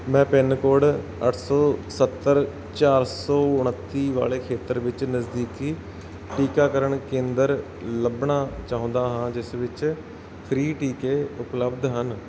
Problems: background sounds at intervals